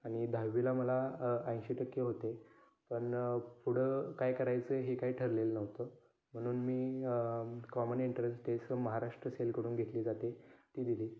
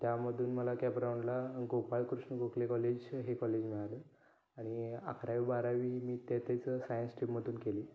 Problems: background sounds at intervals, continuous background conversations